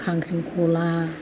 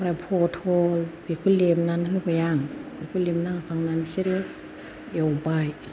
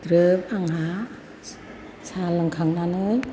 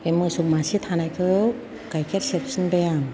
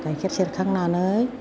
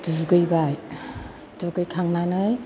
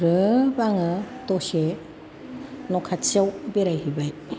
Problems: constant background noise, background conversations at intervals